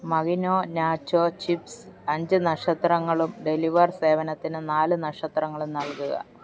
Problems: background sounds at intervals